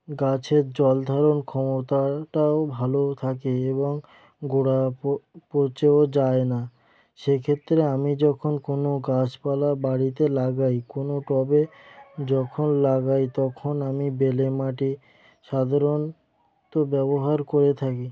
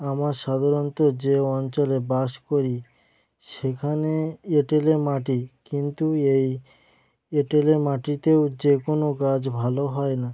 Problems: background sounds at intervals